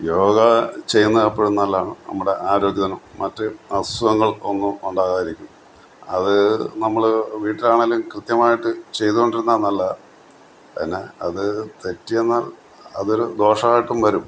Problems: background sounds at intervals